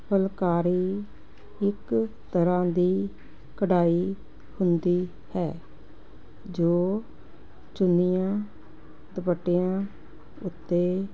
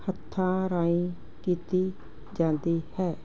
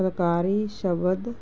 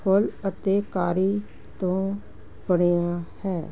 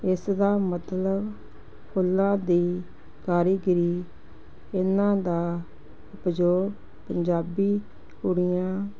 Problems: constant background noise